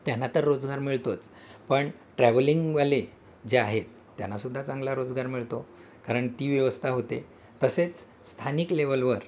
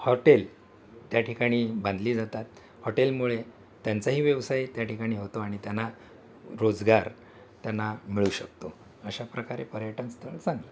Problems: constant background noise, continuous background conversations